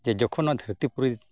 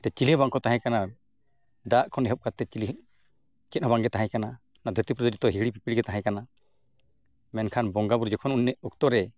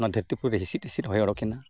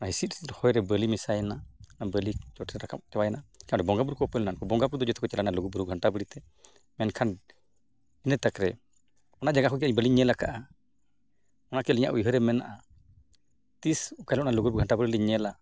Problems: constant background noise